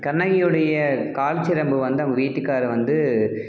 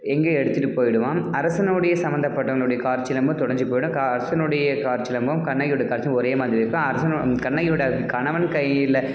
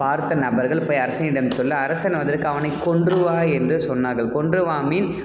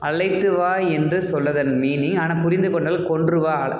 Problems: none marked